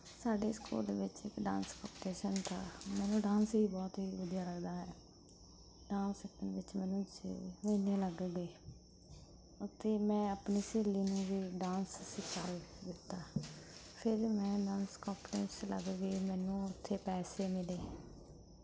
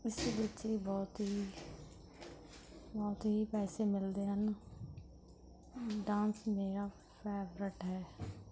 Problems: background sounds at intervals